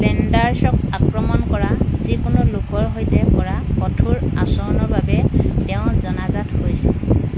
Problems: background sounds at intervals